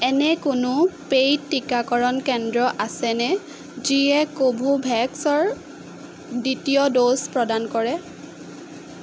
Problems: constant background noise